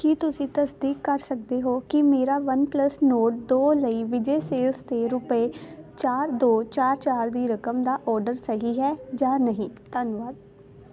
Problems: constant background noise